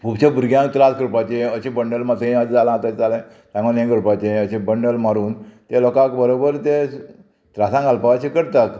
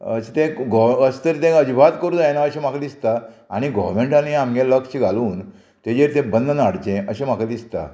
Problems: constant background noise